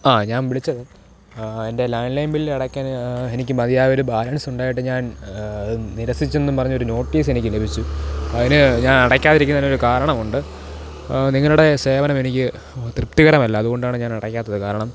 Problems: none marked